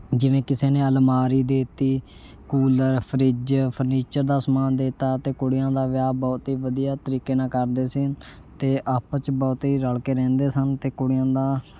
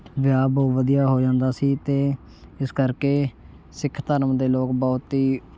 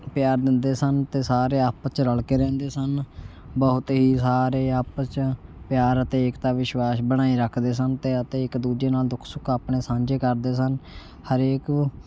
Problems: constant background noise